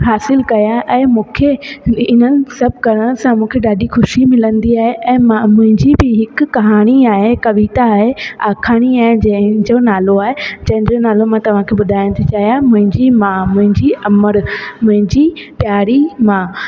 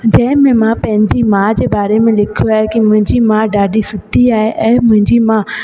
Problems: background sounds at intervals, echo